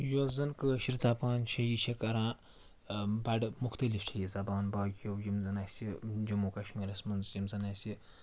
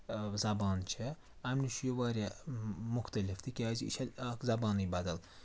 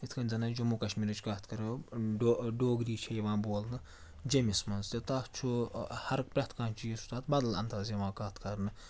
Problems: constant background noise